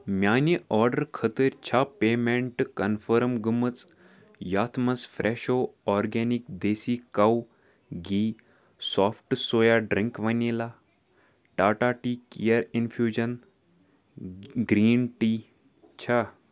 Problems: background sounds at intervals